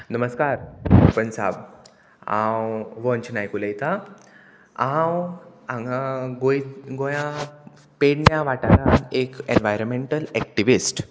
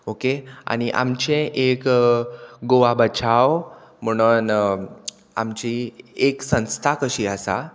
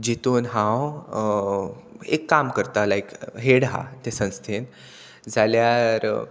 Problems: constant background noise